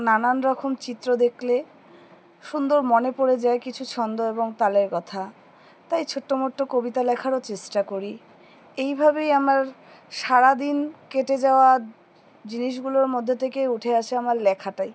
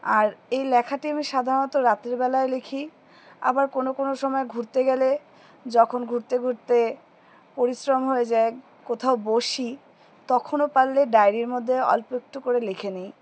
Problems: background sounds at intervals